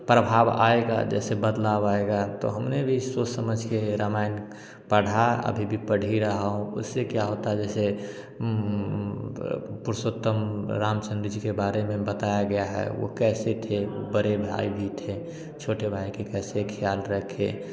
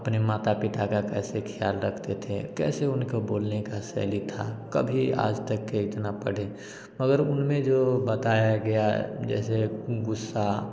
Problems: constant background noise